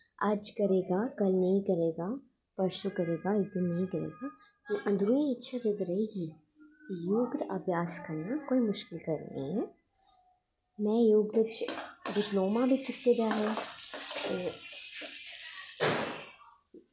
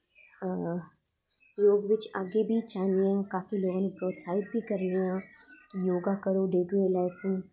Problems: echo